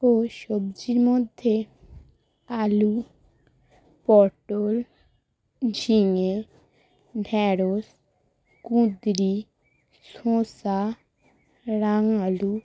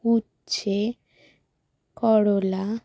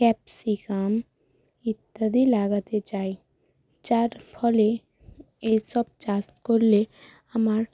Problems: constant background noise